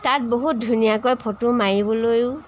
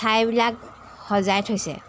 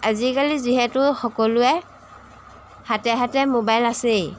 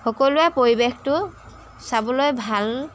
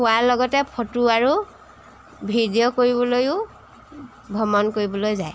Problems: background sounds at intervals